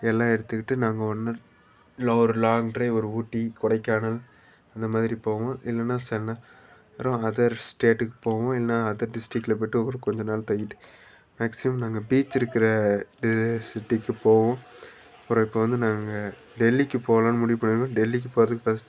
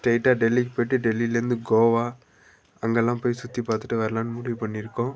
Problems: background sounds at intervals, background conversations at intervals